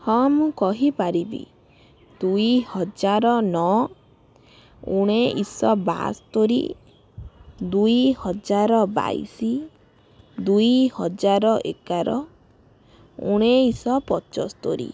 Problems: background conversations at intervals